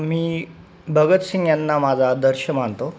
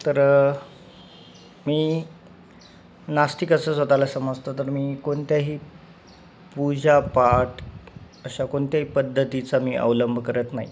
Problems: background sounds at intervals